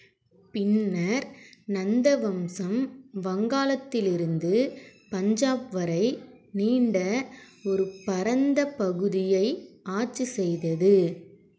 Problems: constant background noise